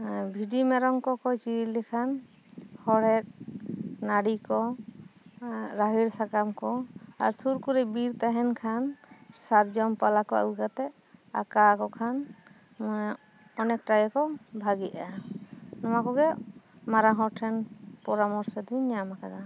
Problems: none marked